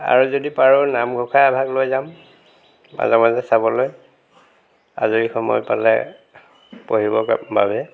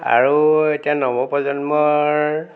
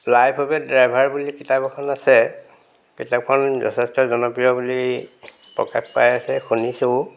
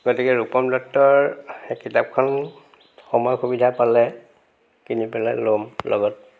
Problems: background sounds at intervals